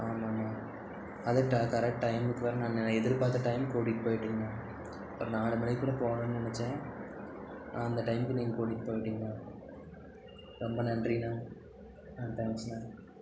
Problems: none marked